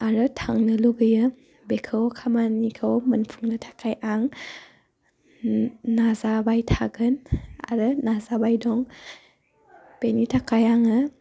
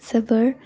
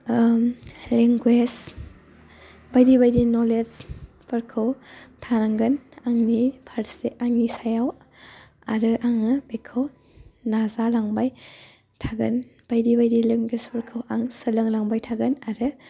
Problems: constant background noise